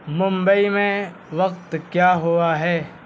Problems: constant background noise